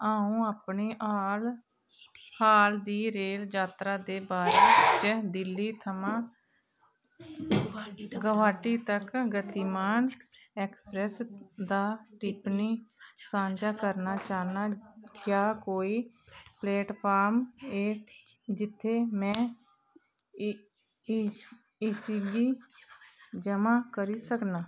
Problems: none marked